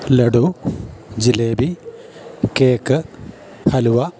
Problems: background sounds at intervals